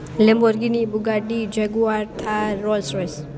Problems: none marked